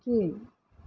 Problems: low volume